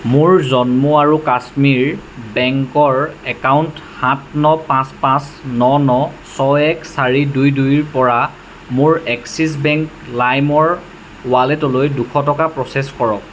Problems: constant background noise